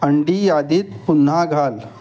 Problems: constant background noise